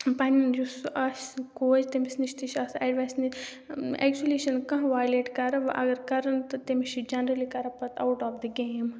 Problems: background sounds at intervals